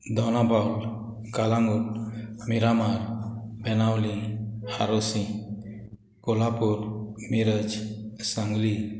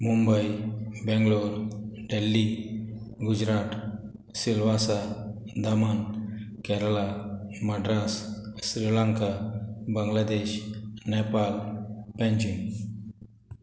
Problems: background sounds at intervals